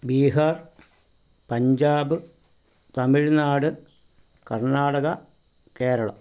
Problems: background sounds at intervals